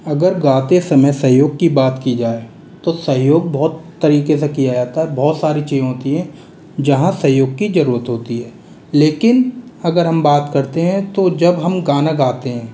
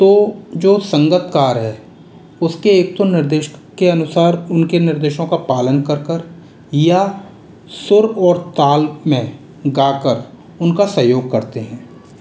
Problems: background sounds at intervals